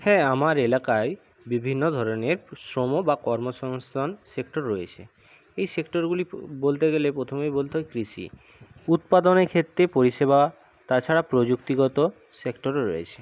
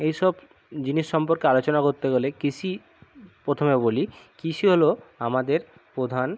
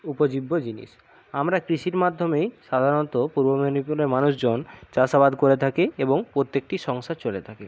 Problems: none marked